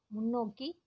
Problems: low volume